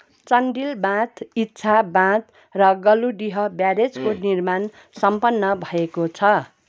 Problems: constant background noise